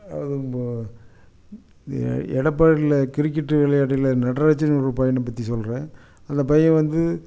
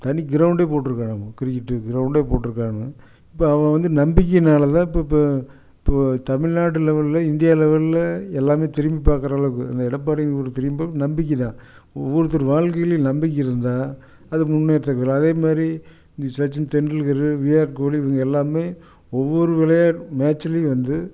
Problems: none marked